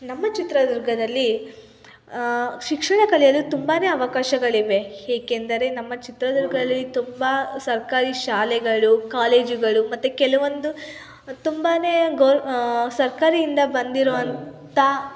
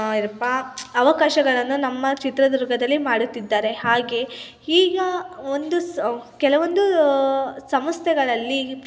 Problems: constant background noise, continuous background conversations